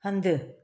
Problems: none marked